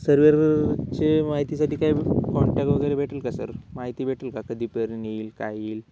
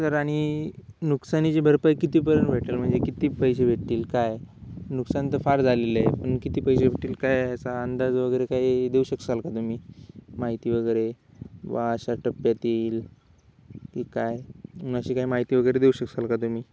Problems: background sounds at intervals